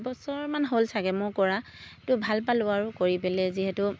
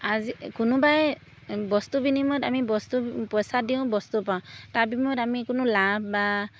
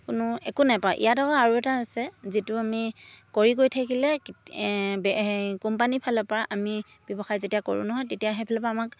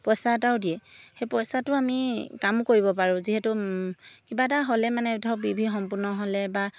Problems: none marked